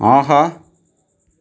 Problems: none marked